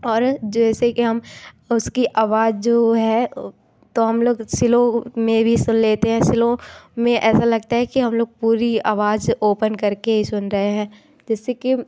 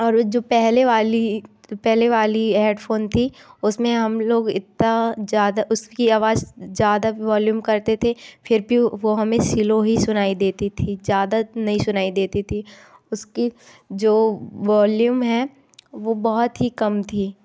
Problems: background sounds at intervals